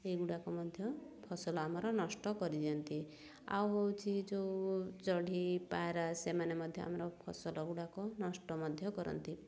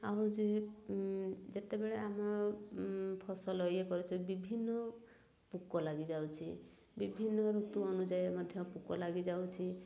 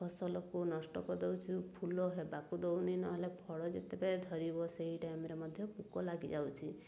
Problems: none marked